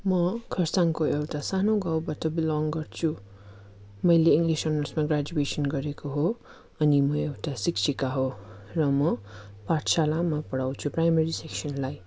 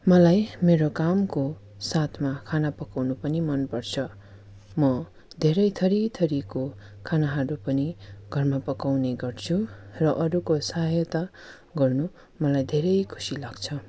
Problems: none marked